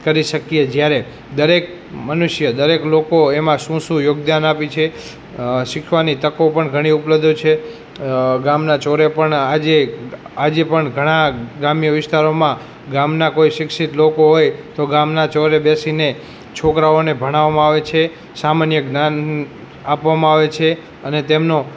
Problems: background conversations at intervals